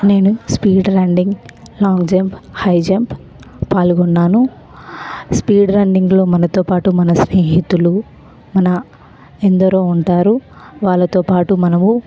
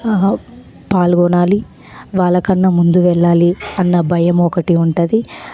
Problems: constant background noise, background conversations at intervals